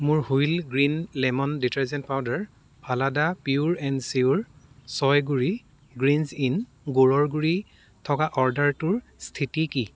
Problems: constant background noise, background conversations at intervals